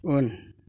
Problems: none marked